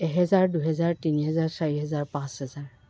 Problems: background sounds at intervals